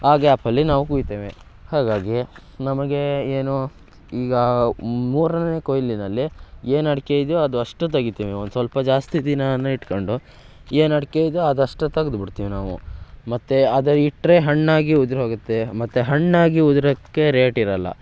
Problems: background sounds at intervals